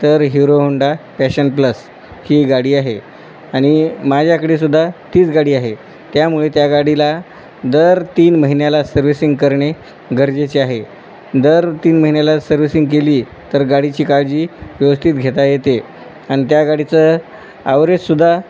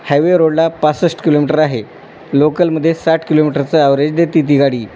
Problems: constant background noise